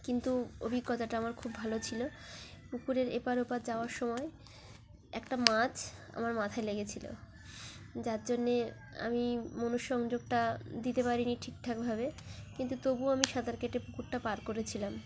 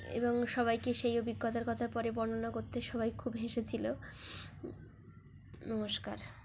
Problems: constant background noise, continuous background conversations